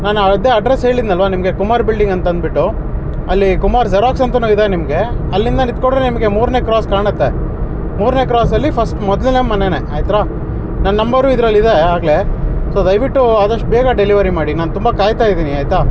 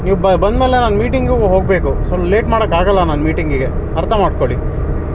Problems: constant background noise